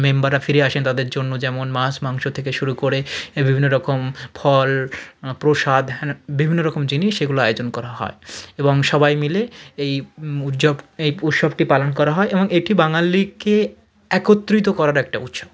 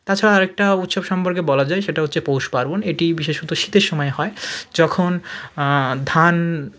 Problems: none marked